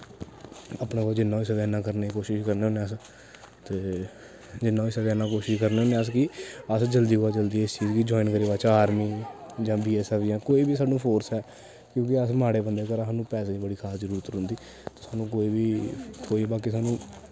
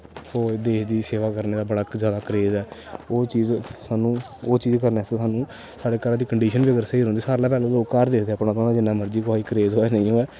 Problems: constant background noise